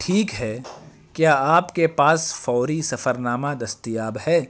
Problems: constant background noise